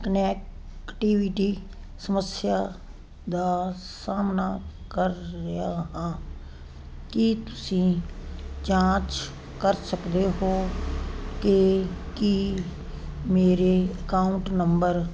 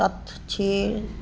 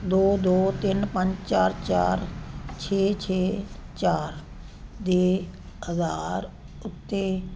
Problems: background conversations at intervals